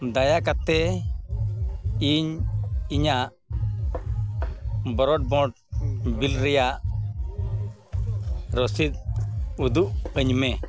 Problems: constant background noise